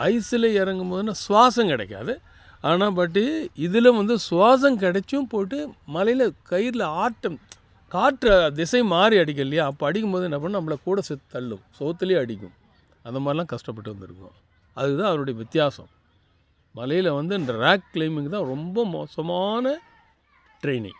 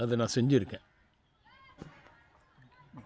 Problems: none marked